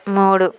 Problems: none marked